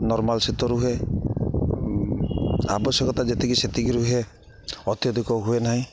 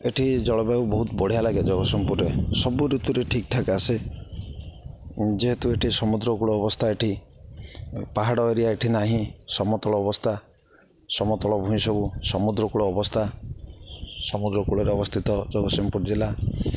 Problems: none marked